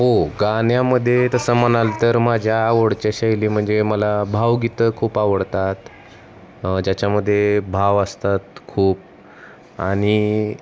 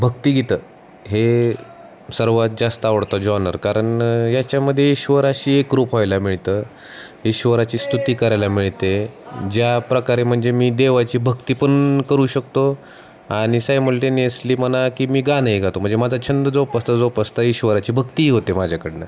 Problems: constant background noise, background conversations at intervals